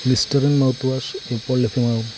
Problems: constant background noise, low volume